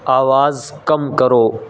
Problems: constant background noise